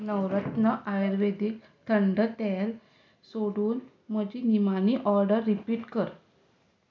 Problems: background sounds at intervals